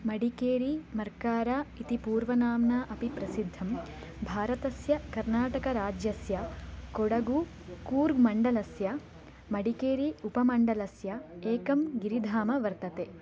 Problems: none marked